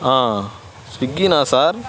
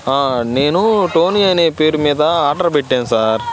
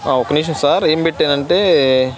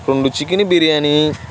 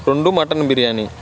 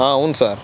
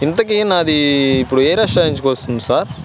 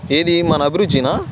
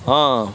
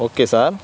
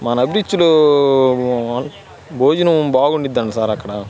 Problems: constant background noise